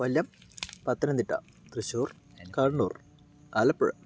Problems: none marked